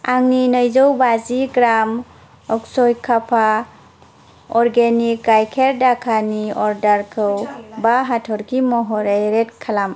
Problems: none marked